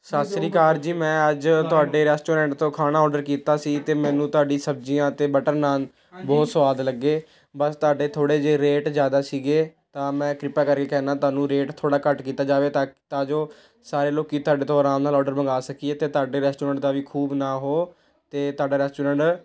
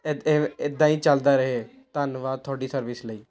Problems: background conversations at intervals